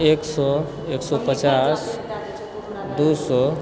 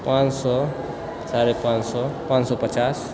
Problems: background sounds at intervals, background conversations at intervals